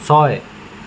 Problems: constant background noise